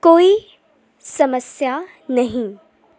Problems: constant background noise